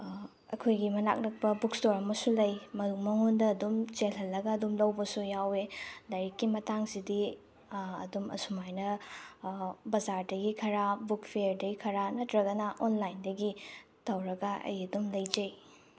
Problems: none marked